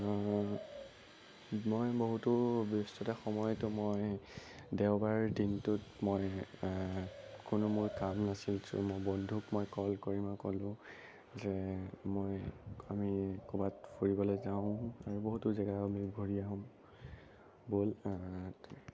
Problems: constant background noise, low volume